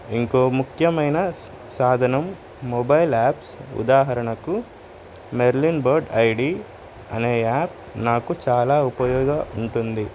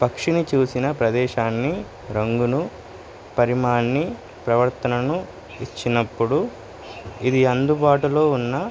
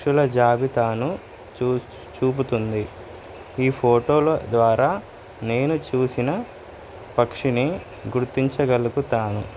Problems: none marked